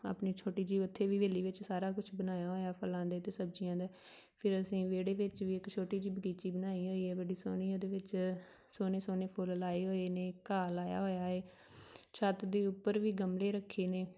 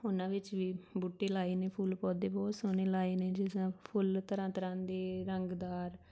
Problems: none marked